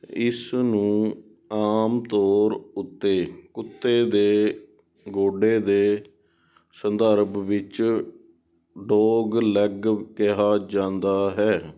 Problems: background sounds at intervals